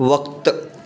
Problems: constant background noise, echo